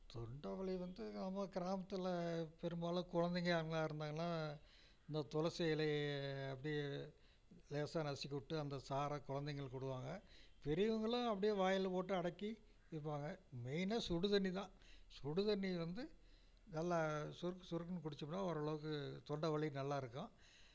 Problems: low volume